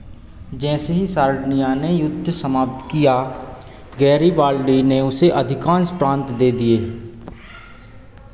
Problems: constant background noise, echo